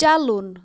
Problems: background sounds at intervals